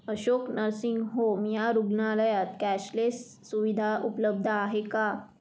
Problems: none marked